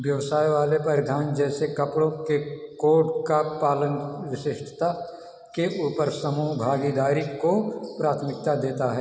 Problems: echo